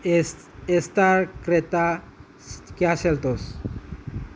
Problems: constant background noise